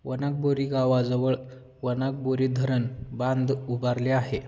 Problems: none marked